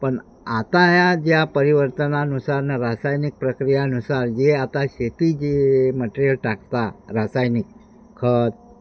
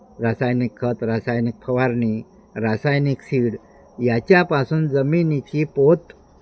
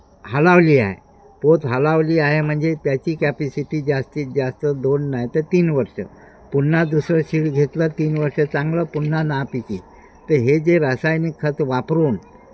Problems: constant background noise, background conversations at intervals